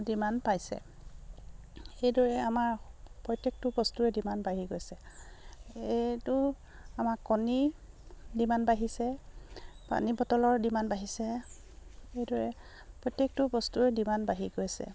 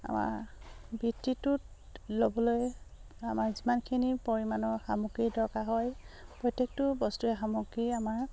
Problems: none marked